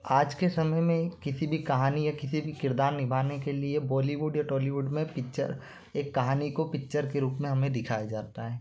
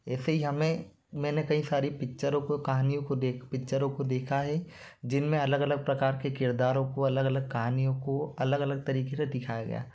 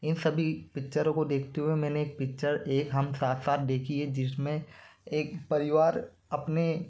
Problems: constant background noise